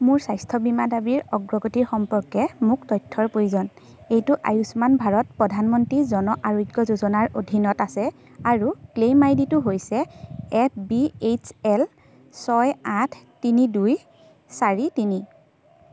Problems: constant background noise